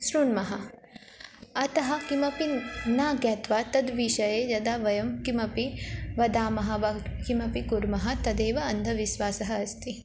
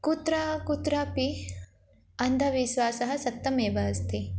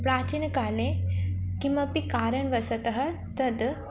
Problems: none marked